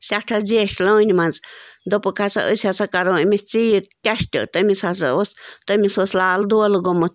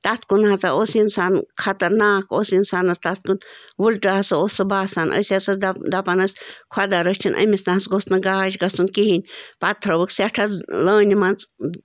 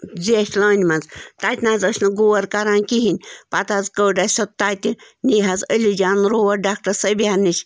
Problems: background sounds at intervals